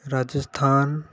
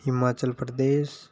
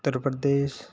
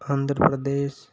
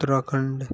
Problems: constant background noise